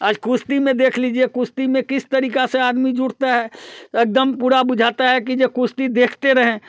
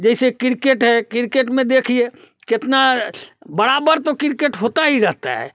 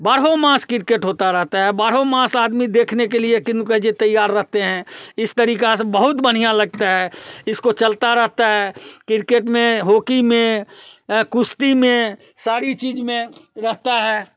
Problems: constant background noise, background conversations at intervals, echo